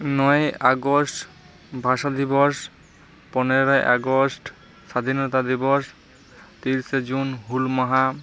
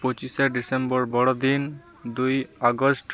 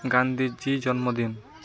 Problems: continuous background conversations